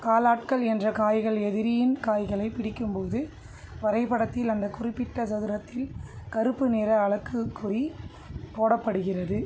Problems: none marked